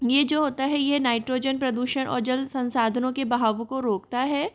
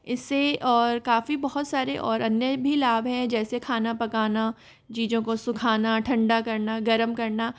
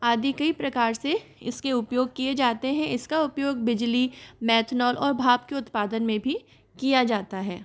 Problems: none marked